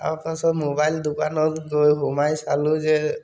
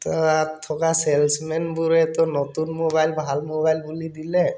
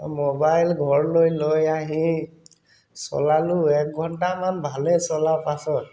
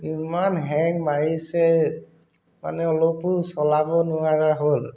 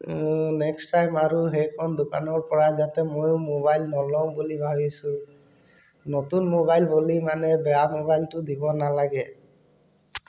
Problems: background sounds at intervals